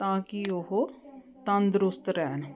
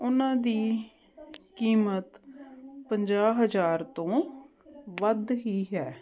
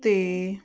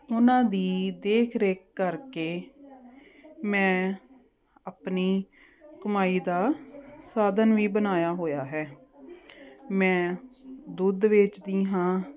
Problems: none marked